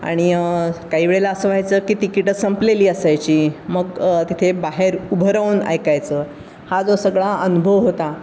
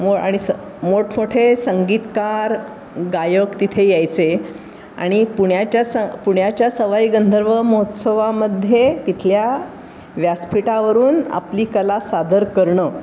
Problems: constant background noise